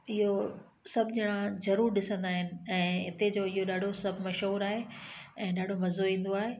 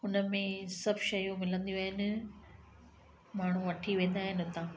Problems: constant background noise, echo